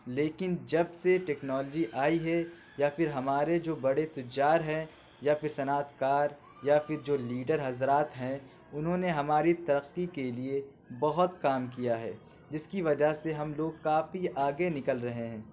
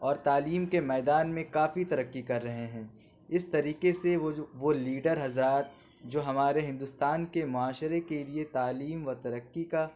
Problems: background sounds at intervals